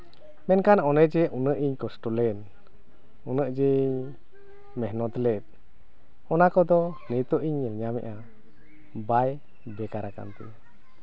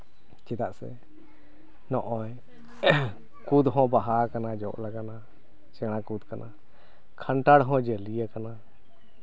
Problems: none marked